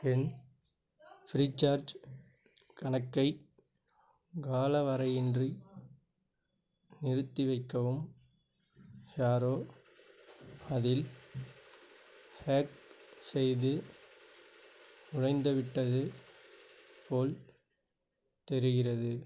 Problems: none marked